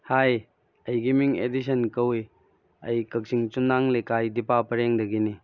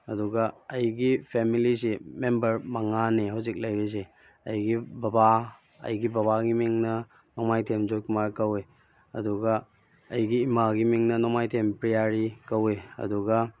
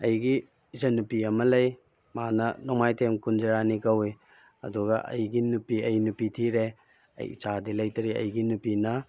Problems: background sounds at intervals